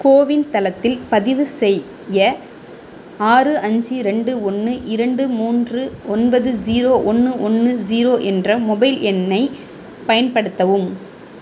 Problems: constant background noise